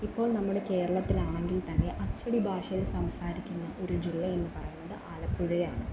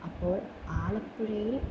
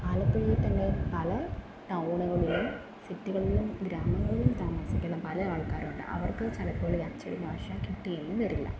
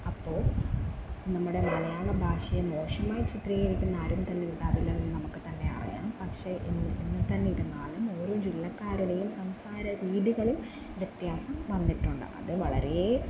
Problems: background sounds at intervals, low volume